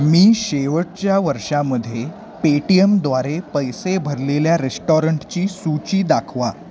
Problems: none marked